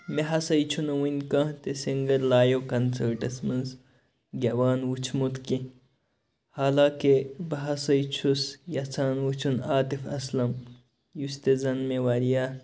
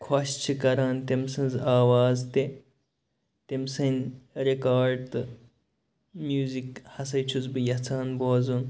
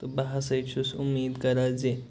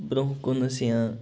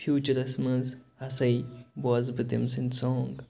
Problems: none marked